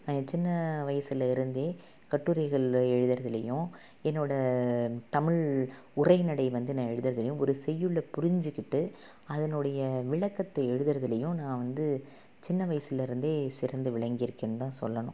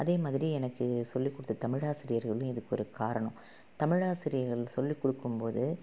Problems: none marked